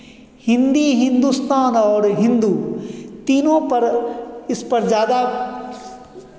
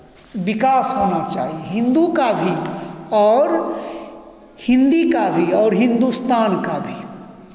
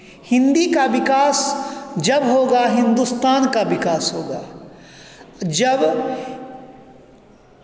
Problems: echo